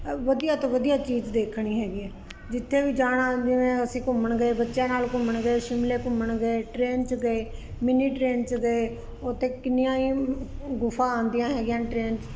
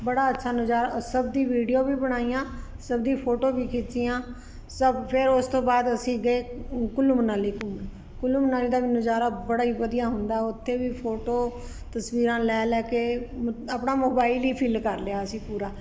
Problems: constant background noise